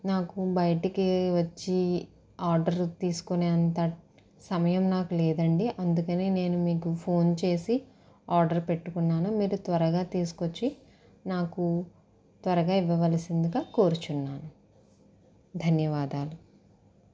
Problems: constant background noise